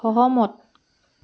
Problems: none marked